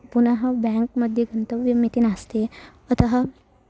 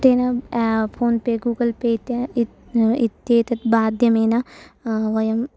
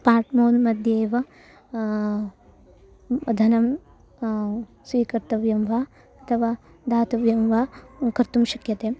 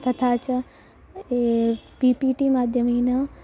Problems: constant background noise, continuous background conversations